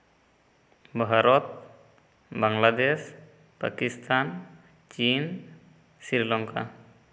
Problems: echo